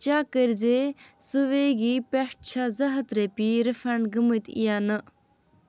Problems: constant background noise